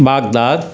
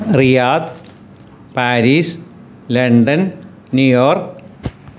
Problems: background sounds at intervals